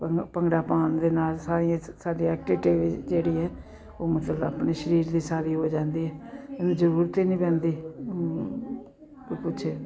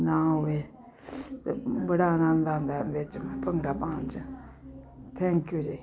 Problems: continuous background conversations